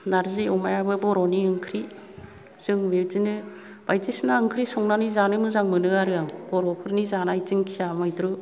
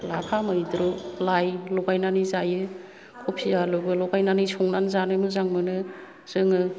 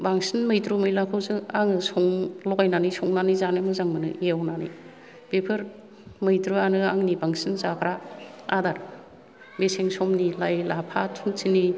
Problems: none marked